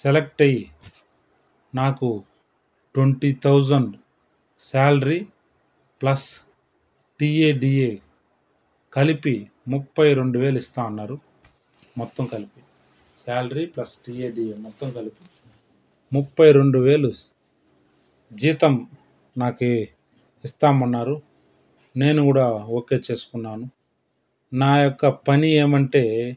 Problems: background sounds at intervals